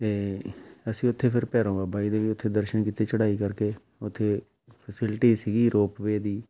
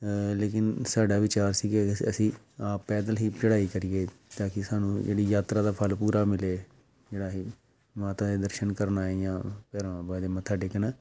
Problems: background sounds at intervals